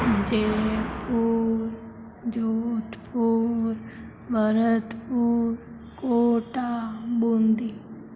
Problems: low volume